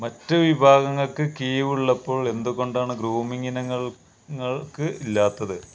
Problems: constant background noise